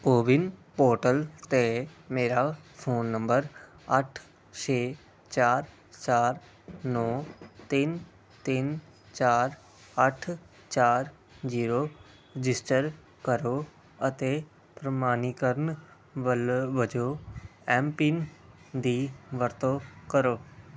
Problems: constant background noise